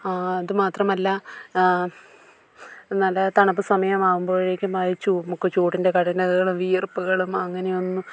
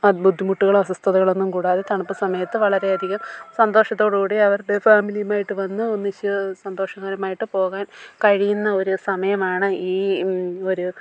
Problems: low volume